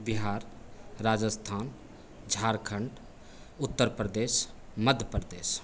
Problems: constant background noise